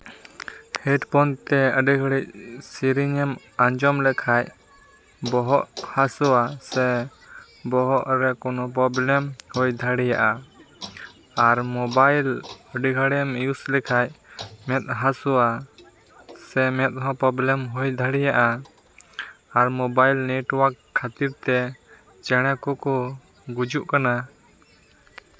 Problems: background sounds at intervals, background conversations at intervals